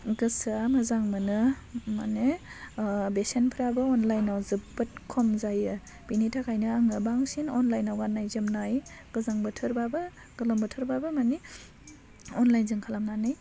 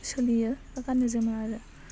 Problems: constant background noise